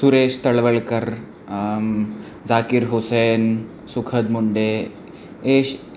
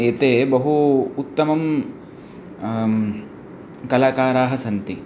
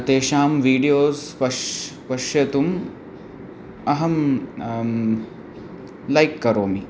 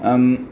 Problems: background conversations at intervals